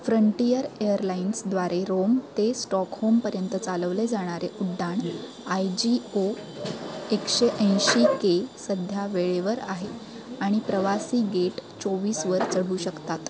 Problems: constant background noise, continuous background conversations